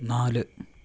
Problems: low volume